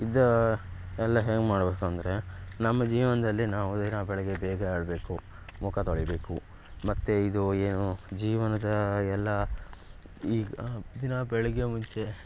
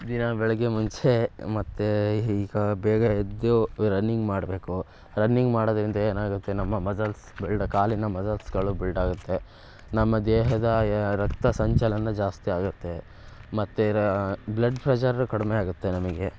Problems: background sounds at intervals